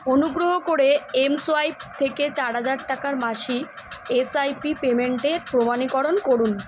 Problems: none marked